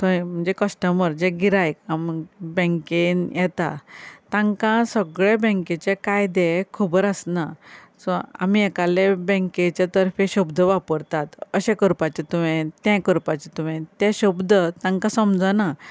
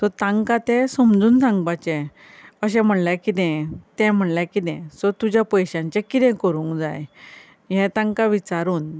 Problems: none marked